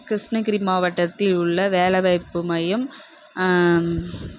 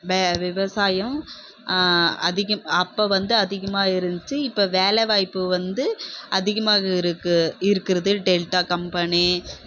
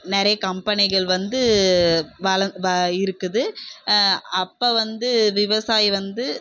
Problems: constant background noise